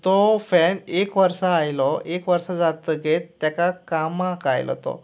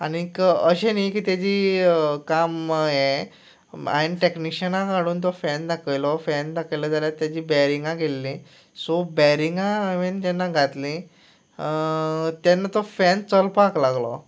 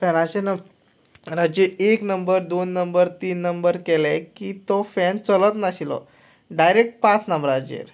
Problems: none marked